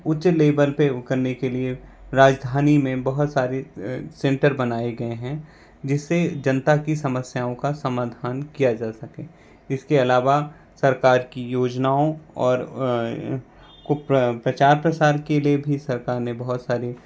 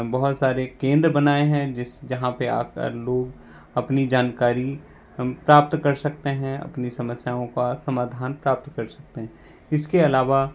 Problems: constant background noise